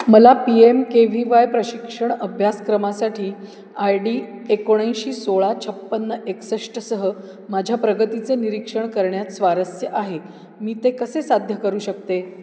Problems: background sounds at intervals